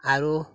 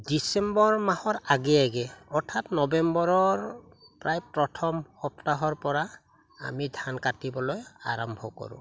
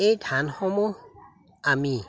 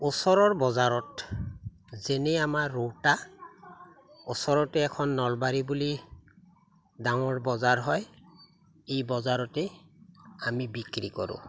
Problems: none marked